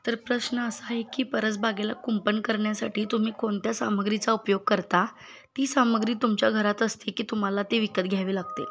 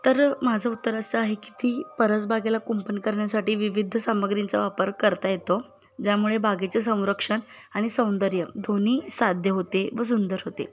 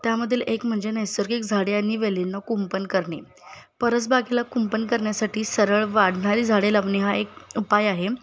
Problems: none marked